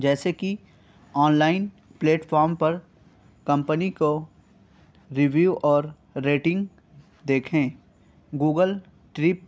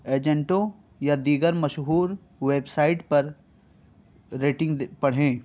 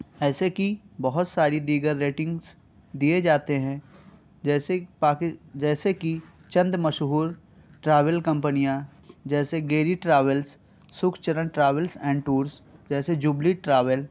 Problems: none marked